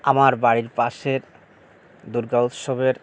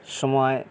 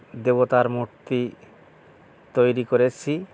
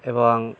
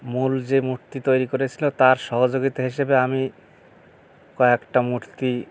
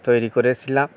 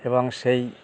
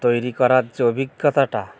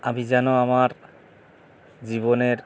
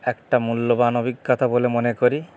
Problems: none marked